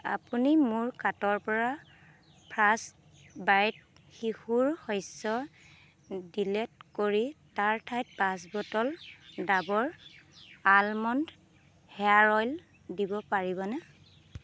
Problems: constant background noise